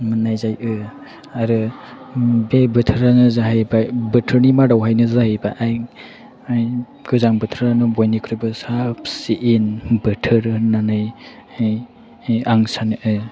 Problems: background sounds at intervals